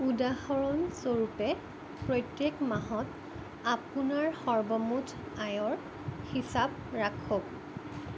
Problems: background sounds at intervals